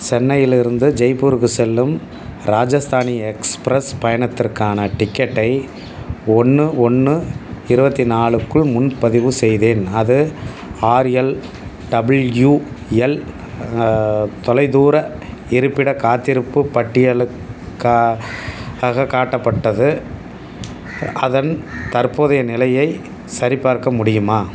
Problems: none marked